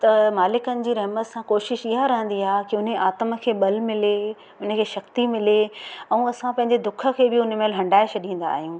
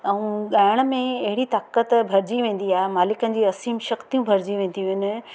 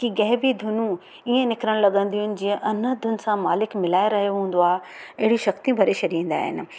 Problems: constant background noise, echo